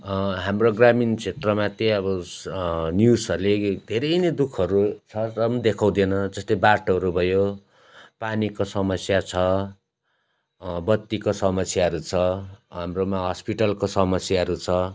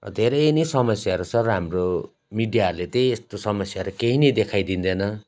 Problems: constant background noise